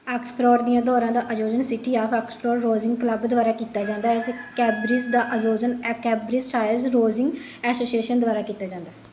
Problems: background sounds at intervals